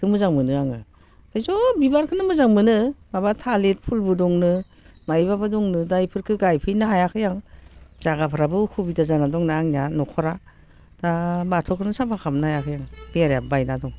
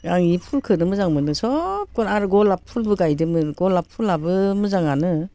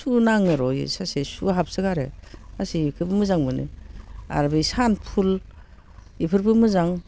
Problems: constant background noise